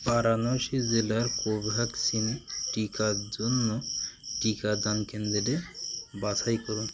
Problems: none marked